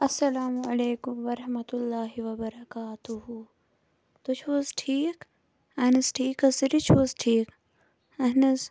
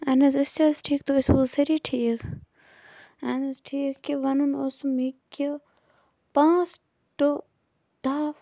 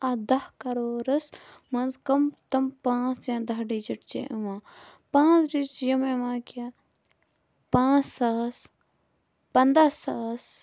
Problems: constant background noise